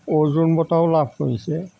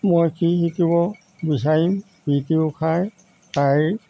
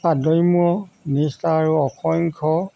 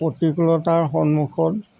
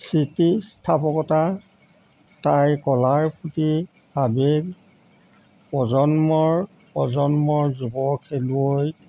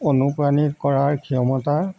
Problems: constant background noise